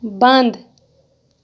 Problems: background sounds at intervals